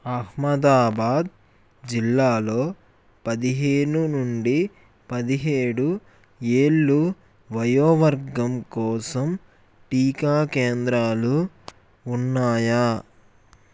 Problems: none marked